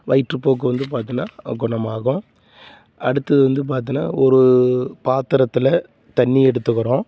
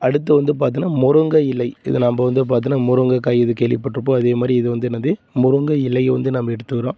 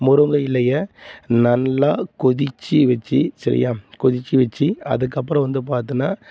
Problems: constant background noise